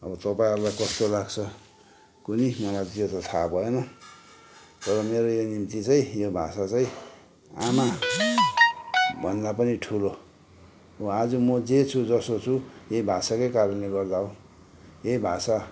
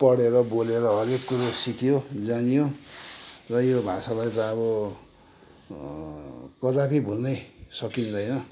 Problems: none marked